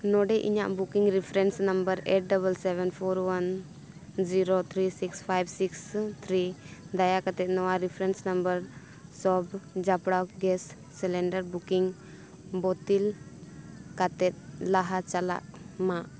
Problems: none marked